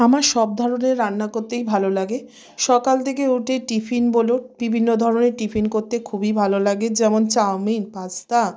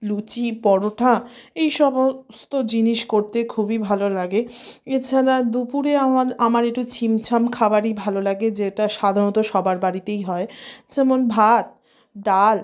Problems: constant background noise